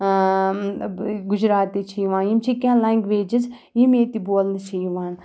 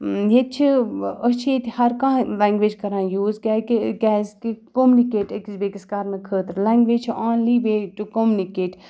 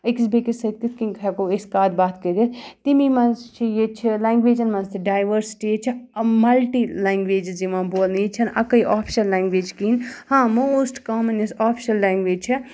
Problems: background sounds at intervals